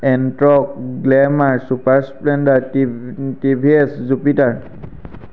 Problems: constant background noise